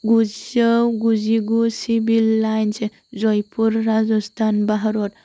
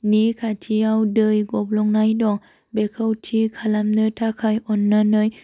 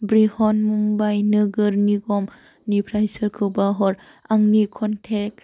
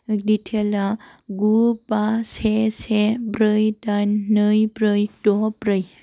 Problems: constant background noise